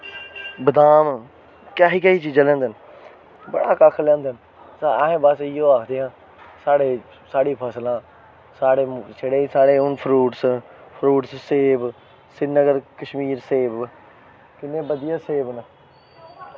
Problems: none marked